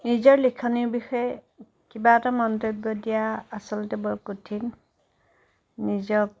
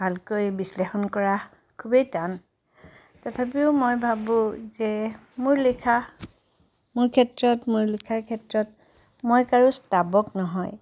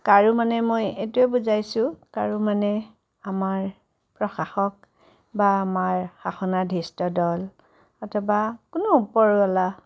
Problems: none marked